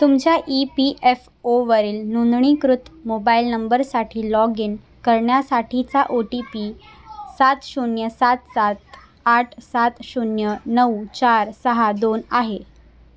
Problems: constant background noise, background conversations at intervals